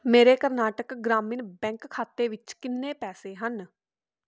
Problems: background conversations at intervals